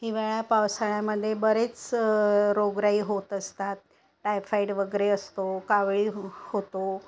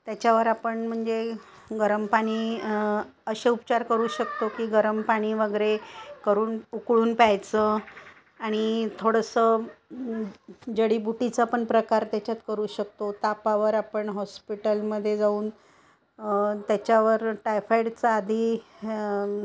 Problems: constant background noise